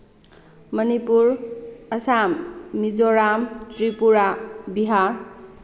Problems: background sounds at intervals